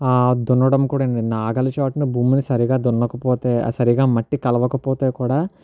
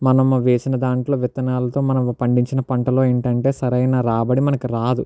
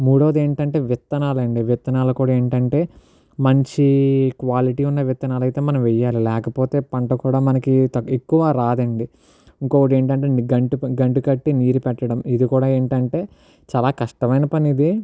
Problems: none marked